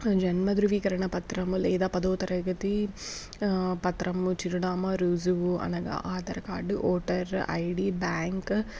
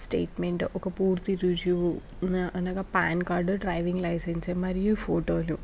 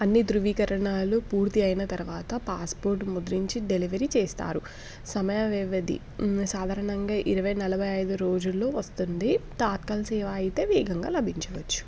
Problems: background sounds at intervals